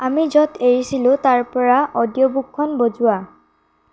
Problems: none marked